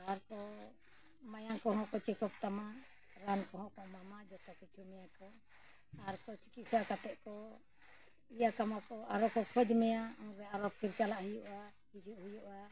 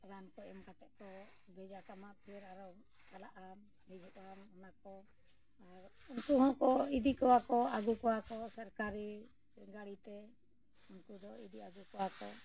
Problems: low volume